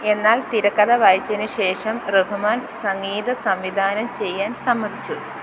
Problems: constant background noise